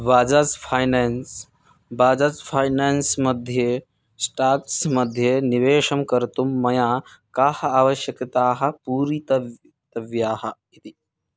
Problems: none marked